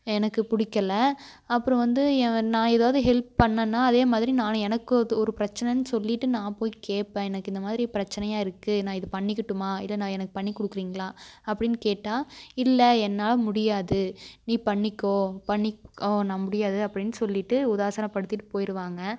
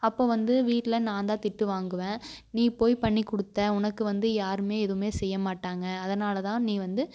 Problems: none marked